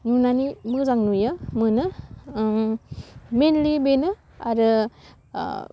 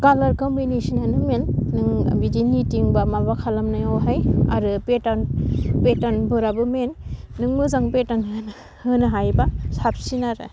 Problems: low volume